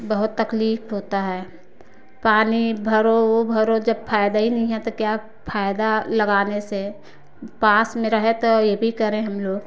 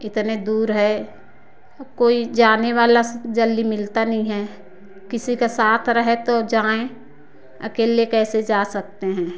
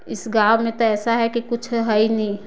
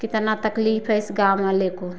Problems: background sounds at intervals